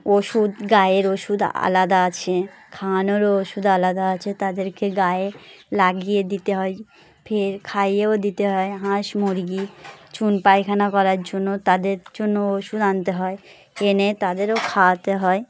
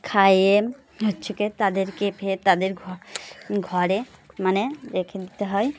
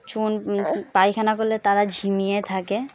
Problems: constant background noise, background conversations at intervals